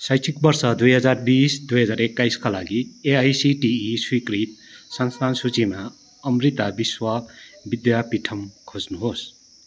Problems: background sounds at intervals